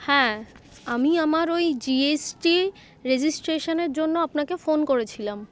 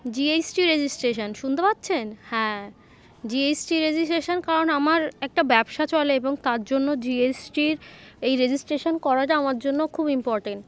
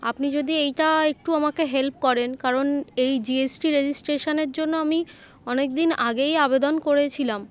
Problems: constant background noise, continuous background conversations